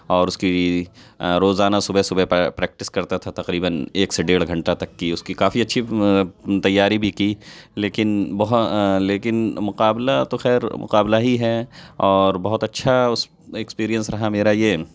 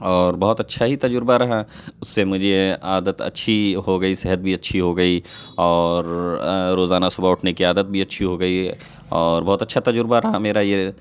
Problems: constant background noise